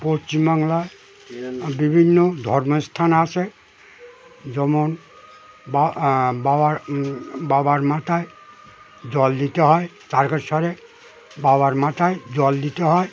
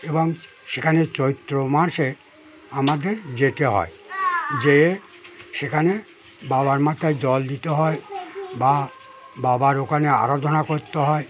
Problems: none marked